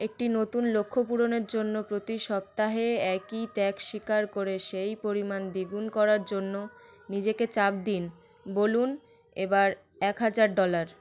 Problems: constant background noise